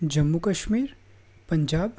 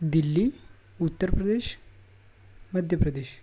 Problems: none marked